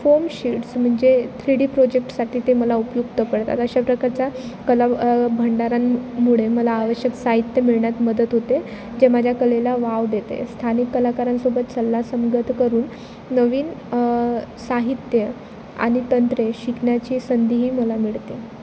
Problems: constant background noise